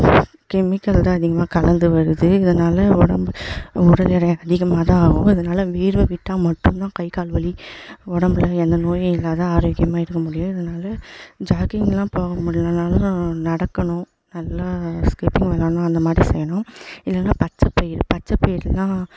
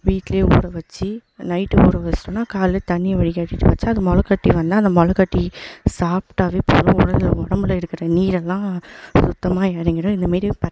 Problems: echo